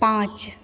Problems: constant background noise, echo